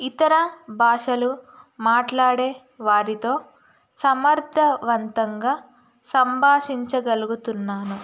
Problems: constant background noise